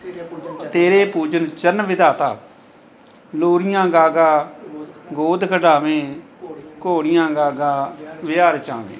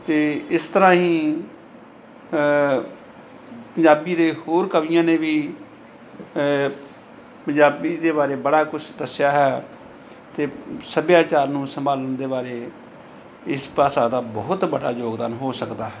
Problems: background sounds at intervals, background conversations at intervals